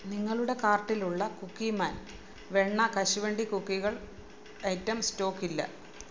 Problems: background sounds at intervals